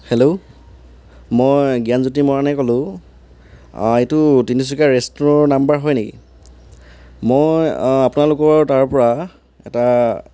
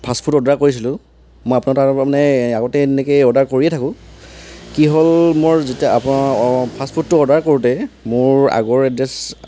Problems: background sounds at intervals